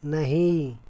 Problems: constant background noise